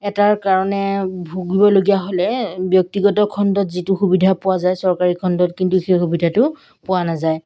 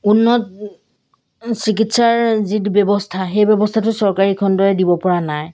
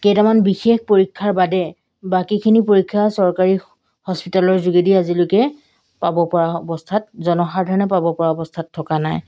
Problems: background sounds at intervals